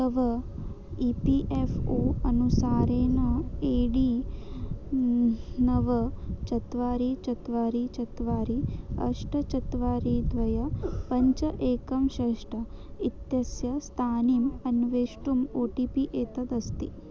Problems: low volume